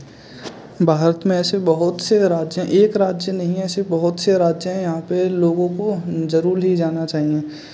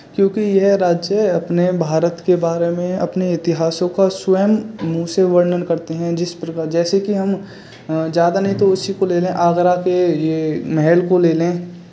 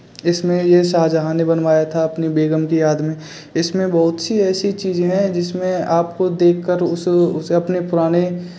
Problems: constant background noise, background conversations at intervals